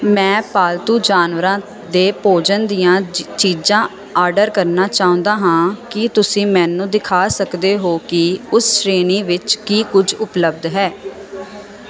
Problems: none marked